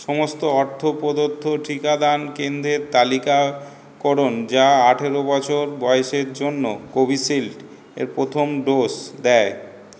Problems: none marked